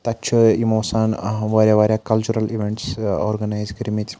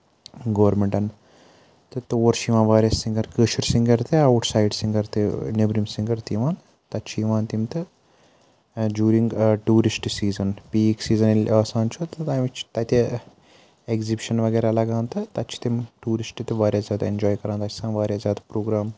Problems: none marked